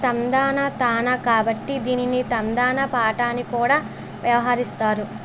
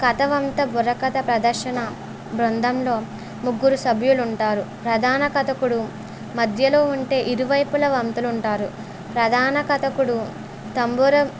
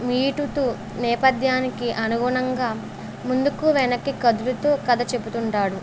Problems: none marked